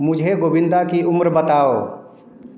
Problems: none marked